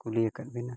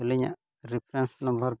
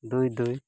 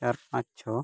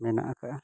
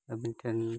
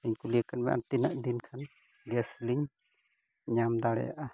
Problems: none marked